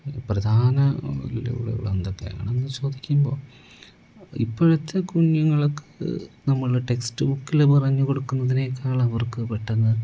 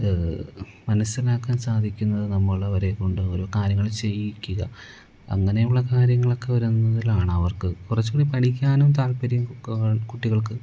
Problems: background sounds at intervals, low volume